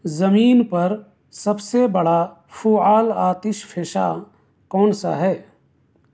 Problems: constant background noise